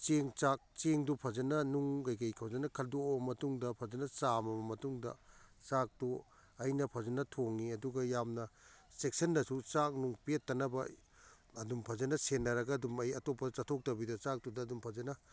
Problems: none marked